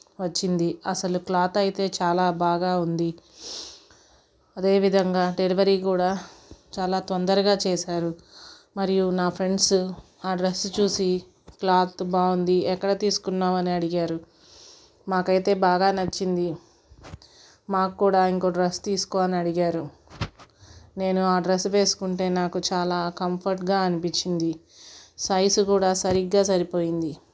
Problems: background sounds at intervals